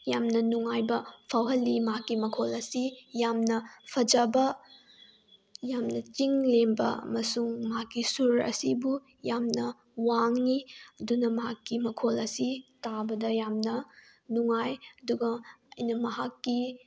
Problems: background sounds at intervals